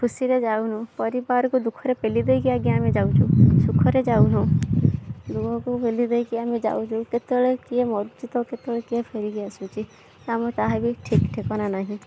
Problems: background sounds at intervals